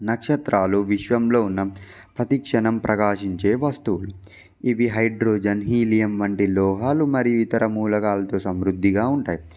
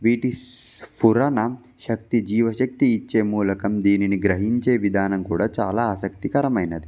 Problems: background sounds at intervals